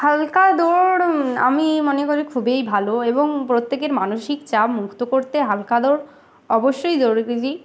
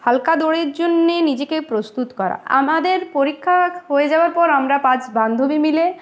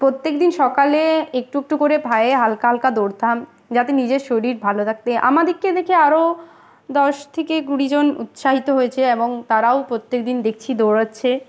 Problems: constant background noise